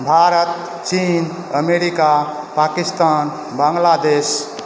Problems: constant background noise